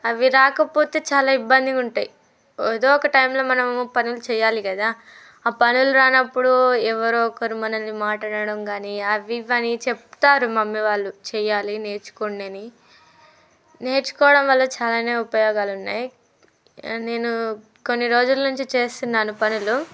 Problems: background conversations at intervals